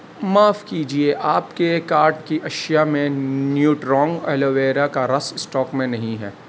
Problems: constant background noise